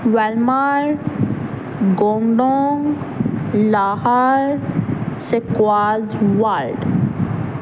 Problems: constant background noise